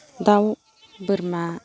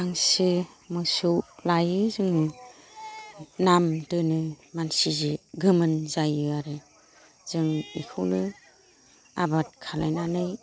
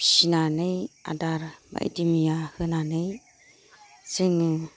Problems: none marked